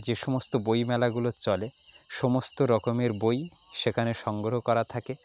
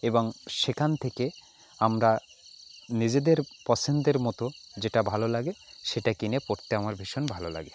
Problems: background conversations at intervals